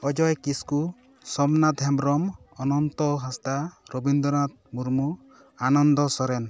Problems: continuous background conversations